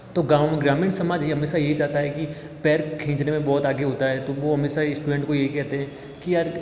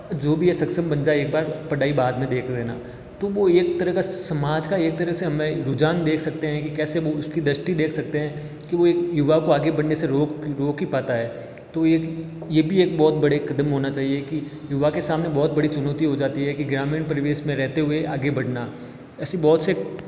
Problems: echo